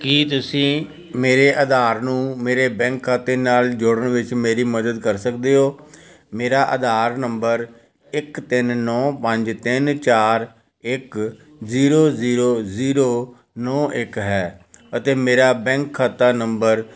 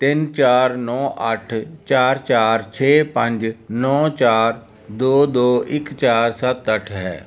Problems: continuous background conversations